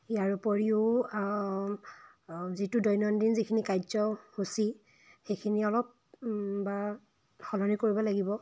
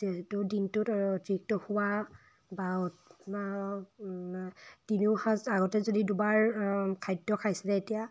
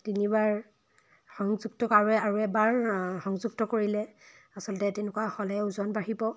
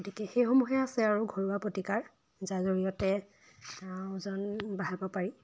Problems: background sounds at intervals